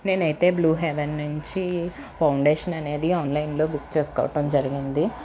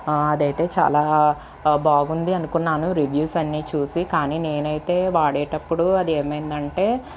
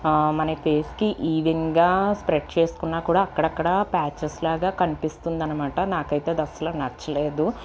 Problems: constant background noise